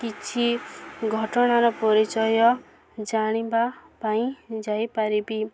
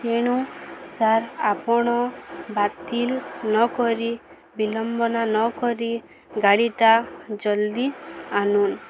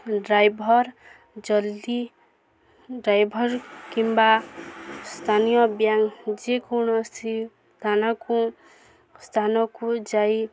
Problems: constant background noise, continuous background conversations